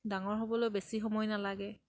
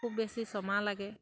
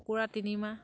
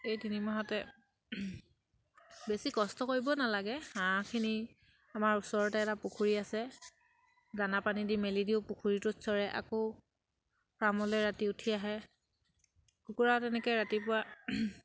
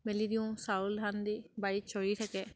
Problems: background sounds at intervals